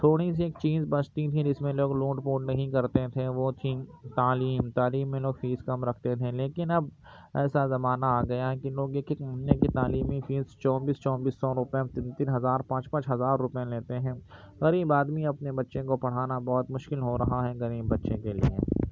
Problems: constant background noise, low volume